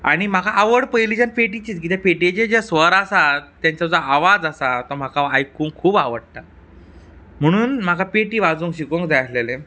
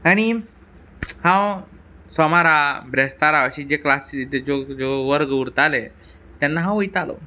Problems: background sounds at intervals